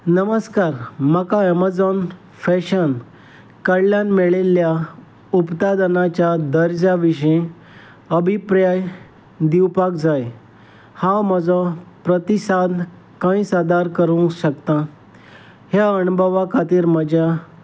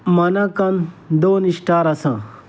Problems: background sounds at intervals